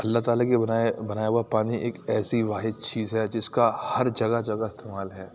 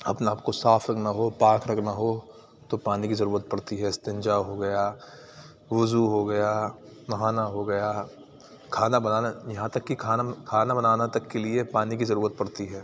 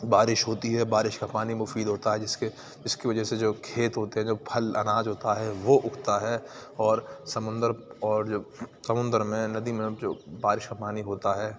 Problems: constant background noise